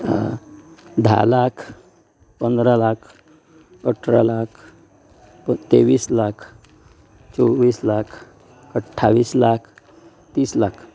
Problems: none marked